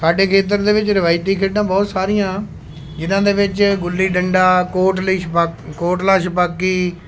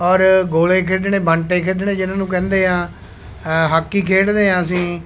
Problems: constant background noise